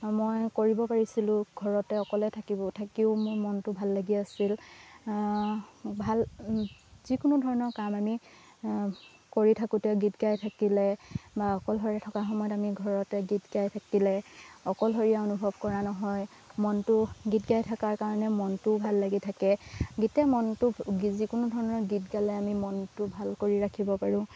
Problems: constant background noise